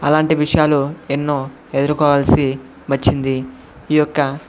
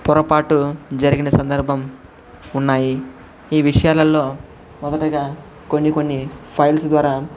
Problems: constant background noise, background conversations at intervals